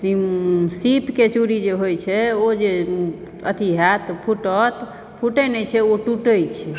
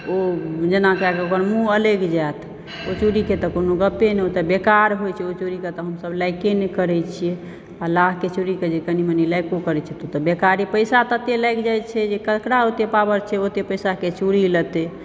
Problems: background sounds at intervals